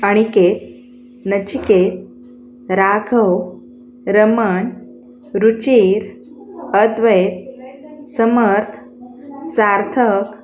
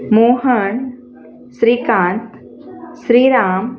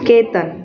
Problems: constant background noise, continuous background conversations